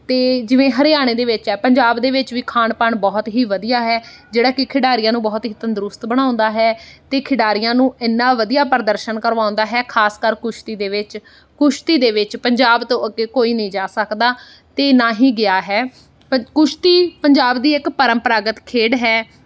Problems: background sounds at intervals